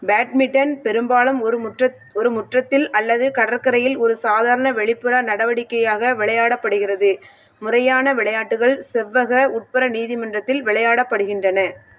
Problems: none marked